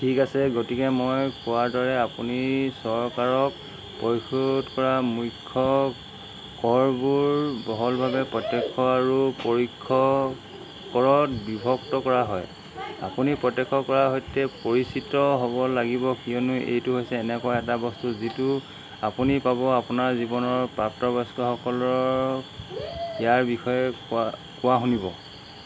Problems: constant background noise, background conversations at intervals